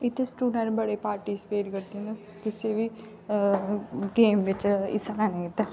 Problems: background conversations at intervals